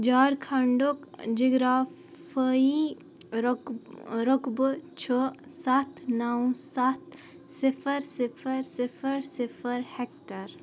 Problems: none marked